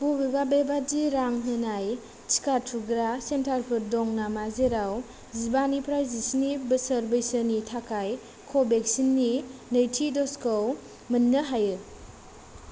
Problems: low volume